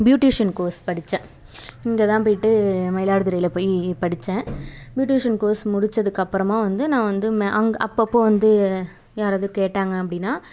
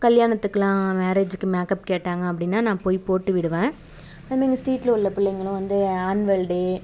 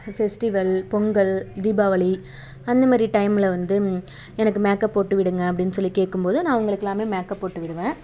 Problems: background sounds at intervals, background conversations at intervals